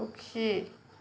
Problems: none marked